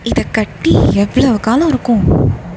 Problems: background sounds at intervals